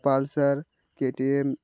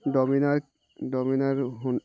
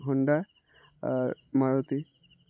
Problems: constant background noise